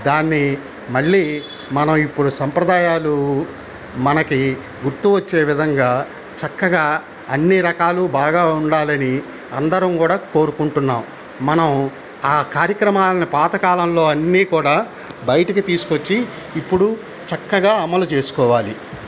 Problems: constant background noise